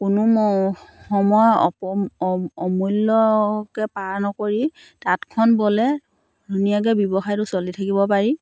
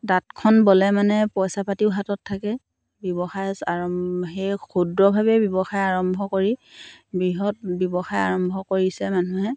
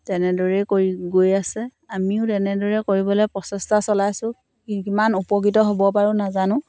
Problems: none marked